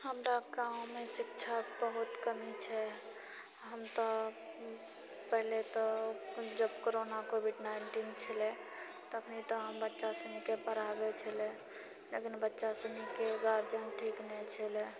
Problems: none marked